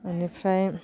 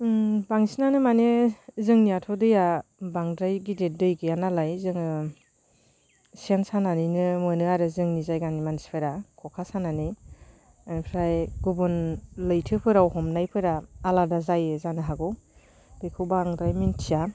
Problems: constant background noise